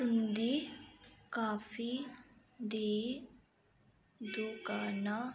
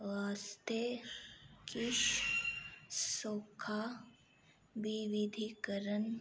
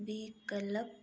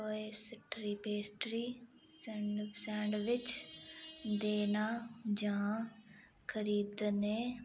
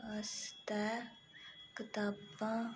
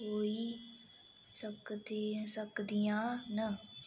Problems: constant background noise